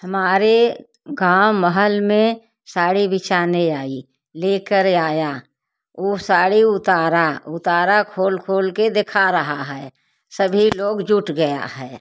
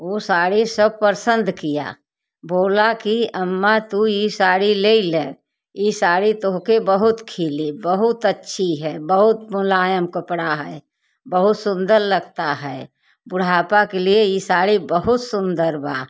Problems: background sounds at intervals, background conversations at intervals